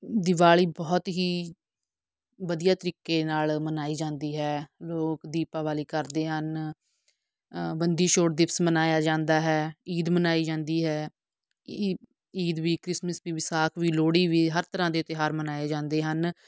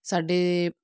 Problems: background sounds at intervals